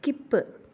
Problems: low volume